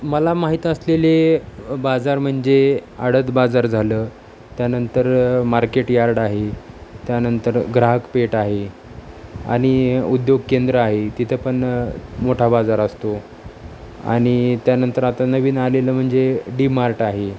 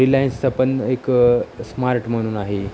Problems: none marked